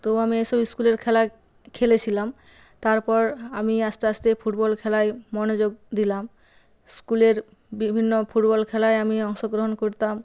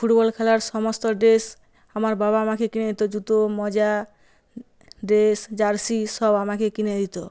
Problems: background sounds at intervals